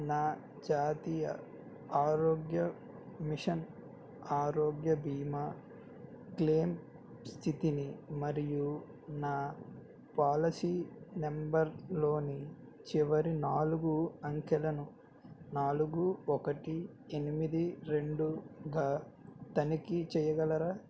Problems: none marked